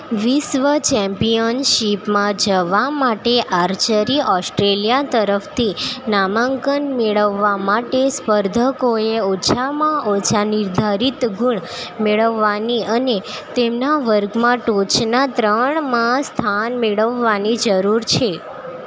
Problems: none marked